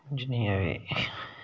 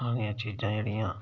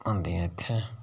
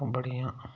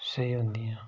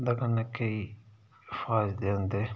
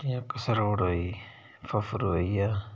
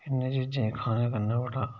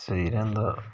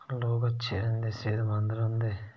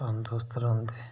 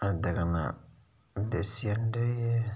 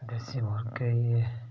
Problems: background sounds at intervals, low volume